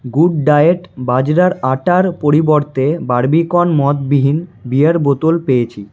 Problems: none marked